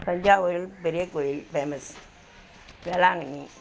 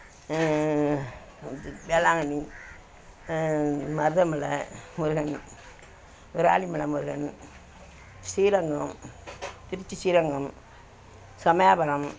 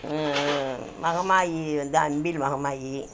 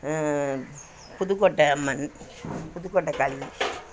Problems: constant background noise